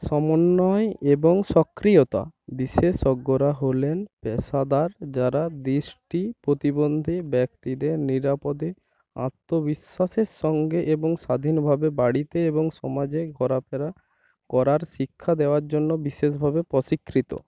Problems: none marked